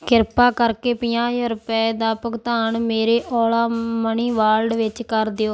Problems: none marked